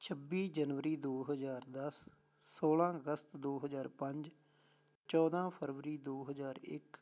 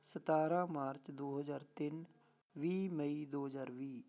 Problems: none marked